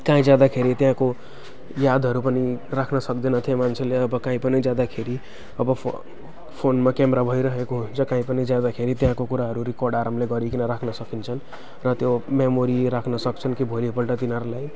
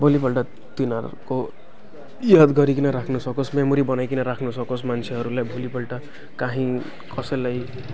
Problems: none marked